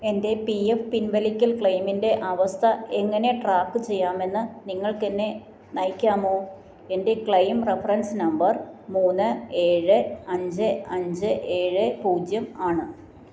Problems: none marked